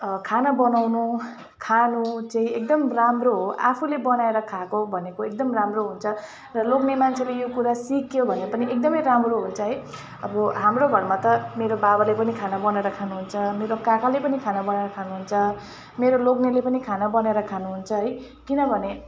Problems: constant background noise, continuous background conversations